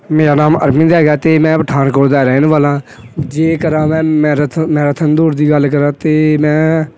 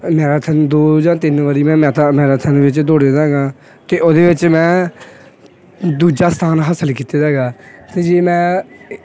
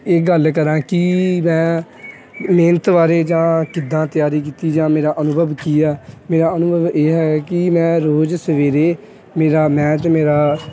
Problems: constant background noise